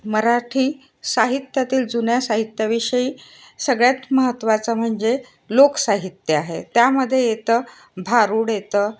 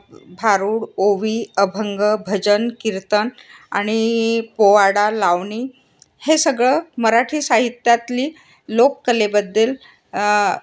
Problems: constant background noise